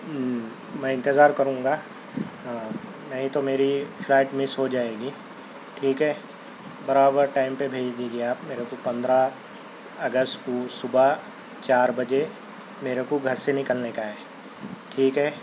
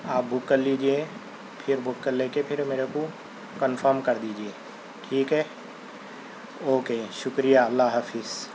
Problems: constant background noise